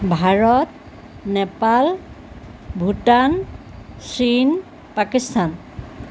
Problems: background sounds at intervals